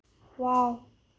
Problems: low volume